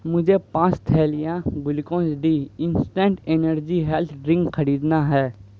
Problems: background sounds at intervals